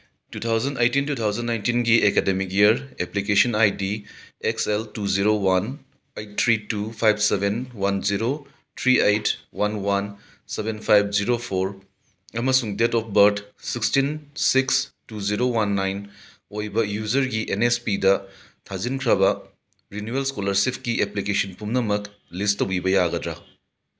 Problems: background sounds at intervals